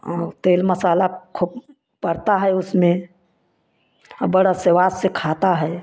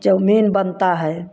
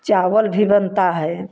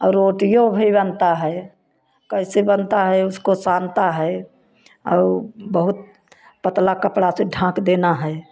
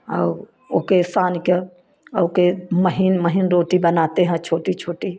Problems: none marked